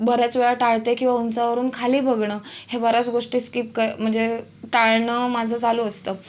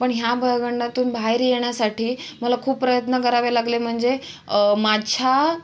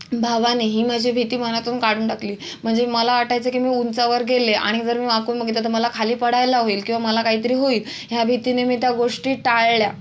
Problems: constant background noise